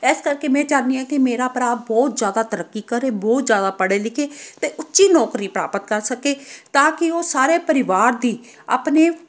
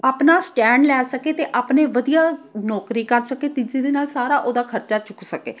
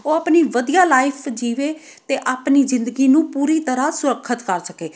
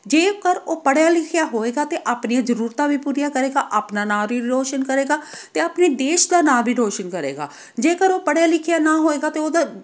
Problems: none marked